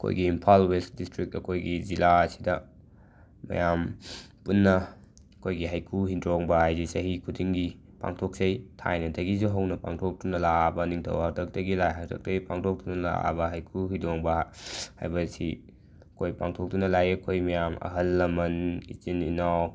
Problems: none marked